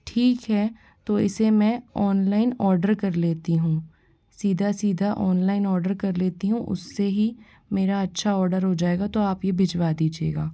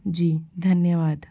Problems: none marked